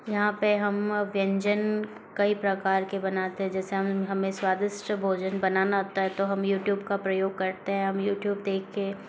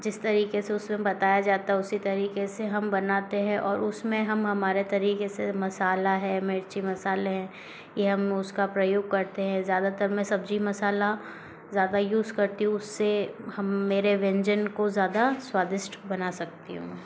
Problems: constant background noise